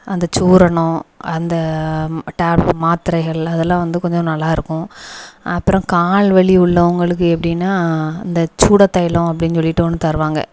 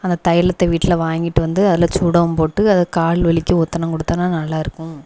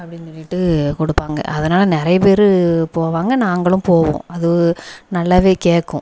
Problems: background sounds at intervals, echo